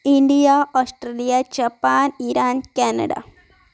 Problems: background sounds at intervals, background conversations at intervals